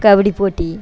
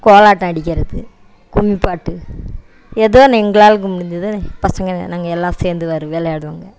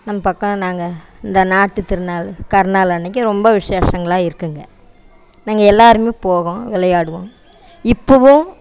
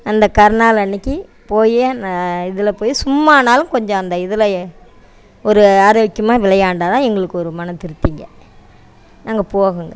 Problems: background sounds at intervals